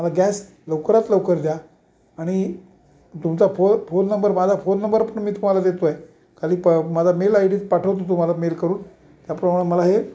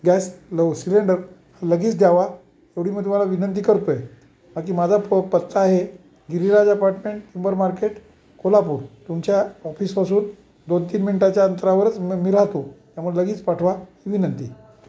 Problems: constant background noise